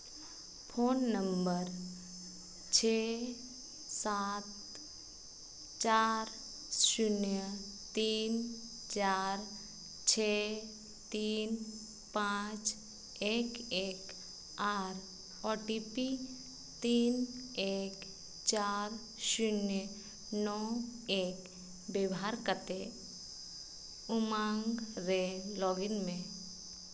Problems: constant background noise, echo